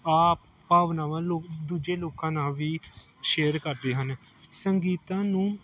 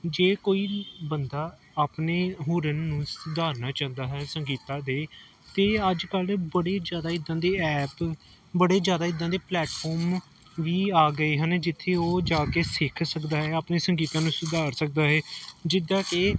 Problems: none marked